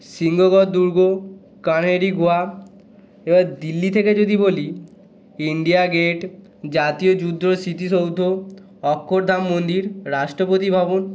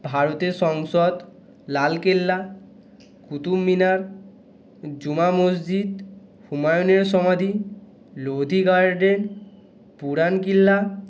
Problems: continuous background conversations